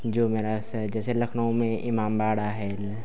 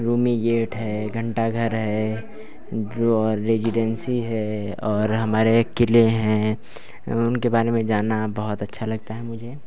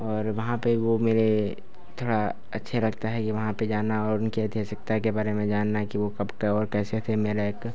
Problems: none marked